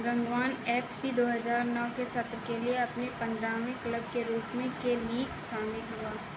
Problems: constant background noise